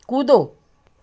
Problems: none marked